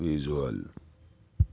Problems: none marked